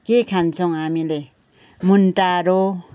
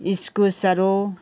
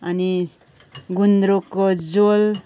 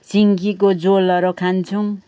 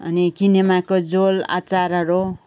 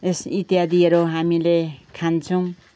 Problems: background sounds at intervals, background conversations at intervals